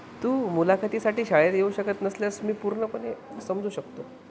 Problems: constant background noise